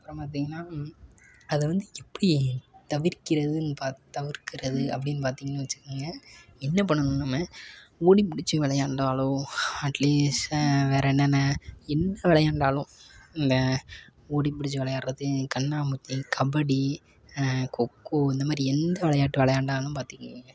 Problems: none marked